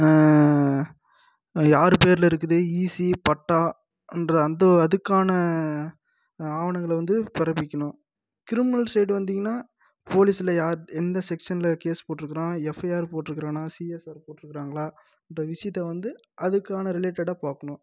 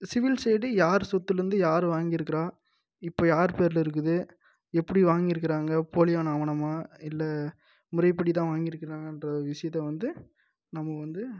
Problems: low volume